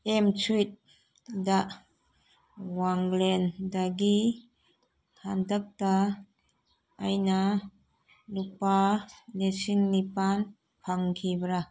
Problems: none marked